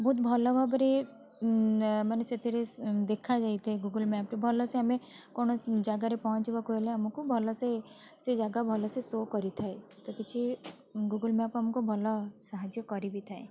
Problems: constant background noise, continuous background conversations